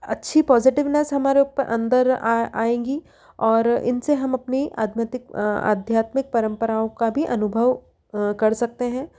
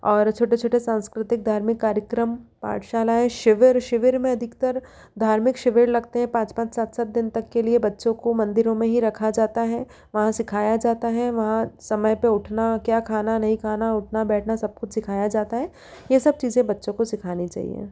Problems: none marked